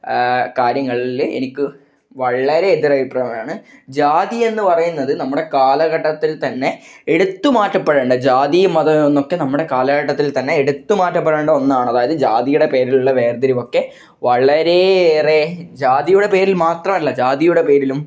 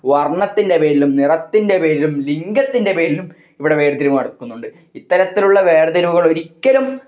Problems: none marked